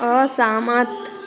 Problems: constant background noise